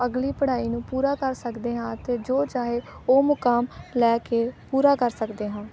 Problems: background conversations at intervals